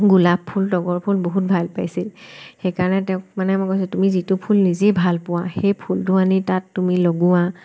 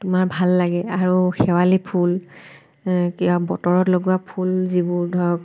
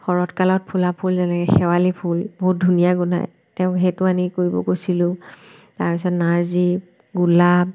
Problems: none marked